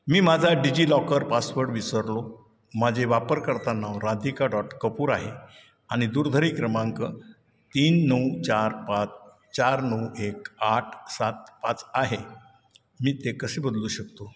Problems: none marked